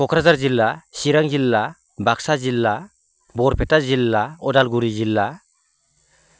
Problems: low volume